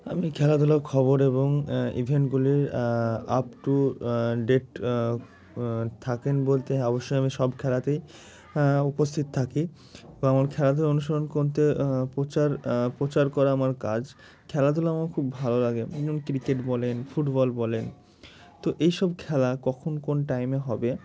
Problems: constant background noise